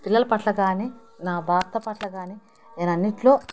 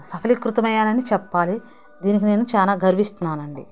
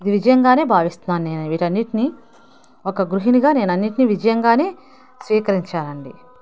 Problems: background sounds at intervals